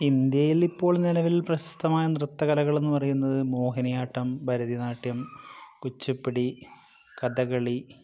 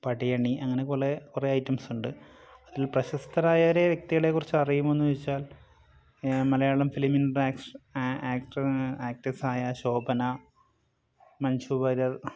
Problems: none marked